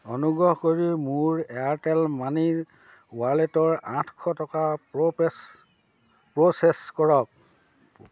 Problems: constant background noise